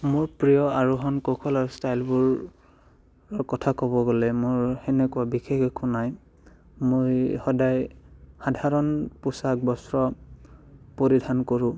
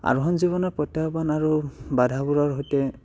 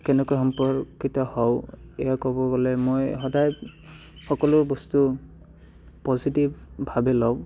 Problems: background sounds at intervals, background conversations at intervals